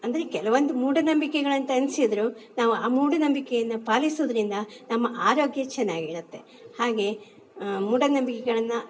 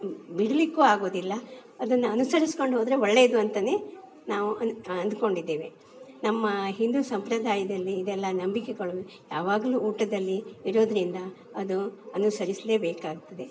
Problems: background sounds at intervals